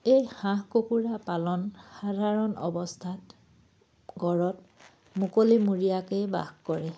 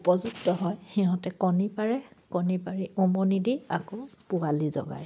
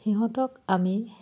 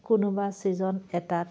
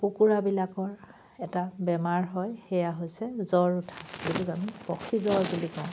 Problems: none marked